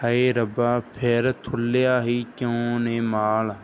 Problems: background sounds at intervals